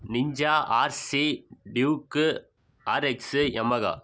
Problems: constant background noise